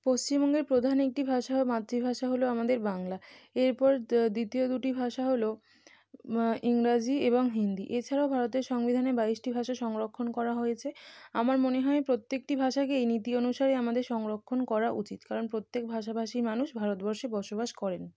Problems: constant background noise